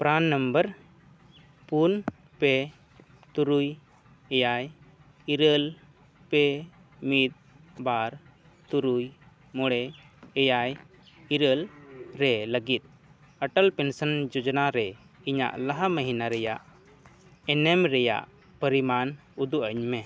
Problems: none marked